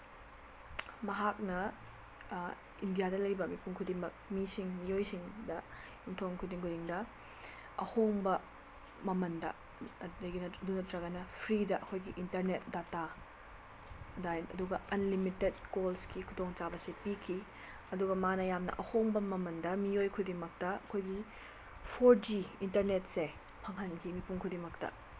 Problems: constant background noise